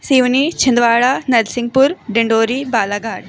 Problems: background sounds at intervals, background conversations at intervals